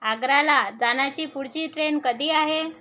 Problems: constant background noise